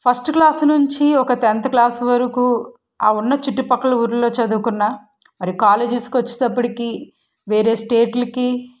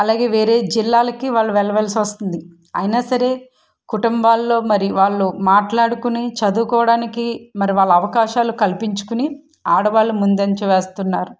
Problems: none marked